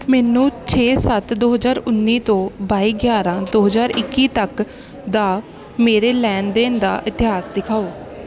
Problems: none marked